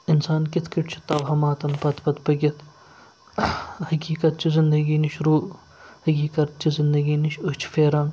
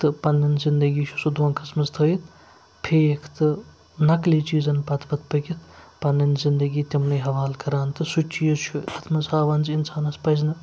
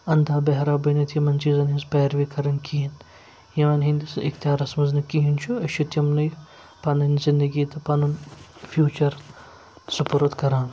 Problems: none marked